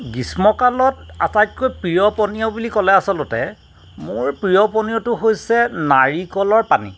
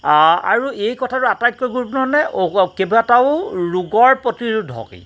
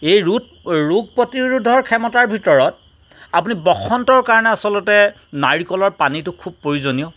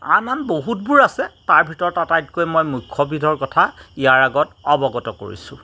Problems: constant background noise